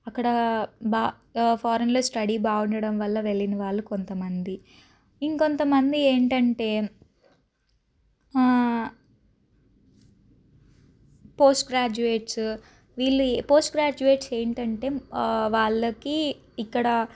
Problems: none marked